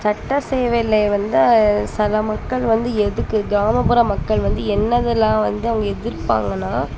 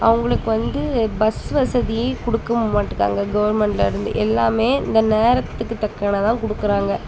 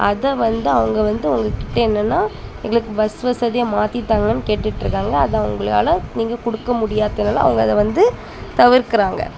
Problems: constant background noise, background conversations at intervals